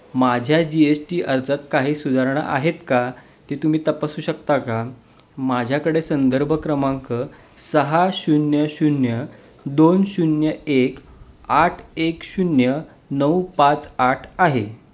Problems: none marked